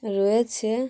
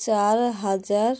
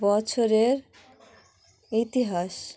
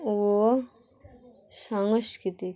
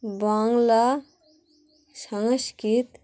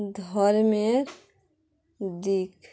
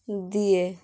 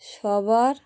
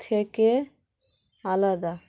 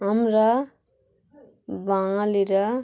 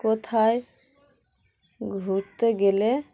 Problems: constant background noise, continuous background conversations